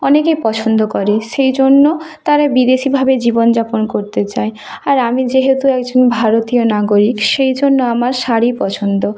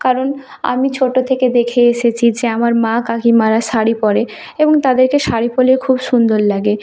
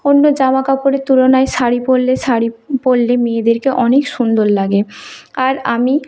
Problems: continuous background conversations